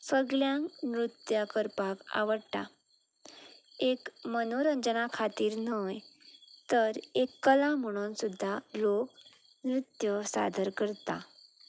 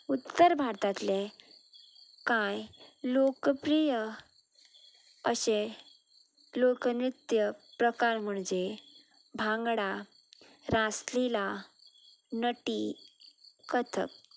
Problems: none marked